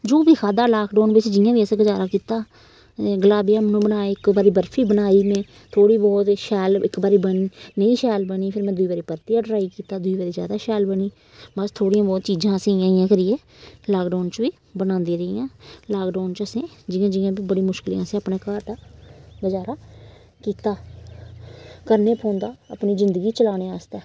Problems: constant background noise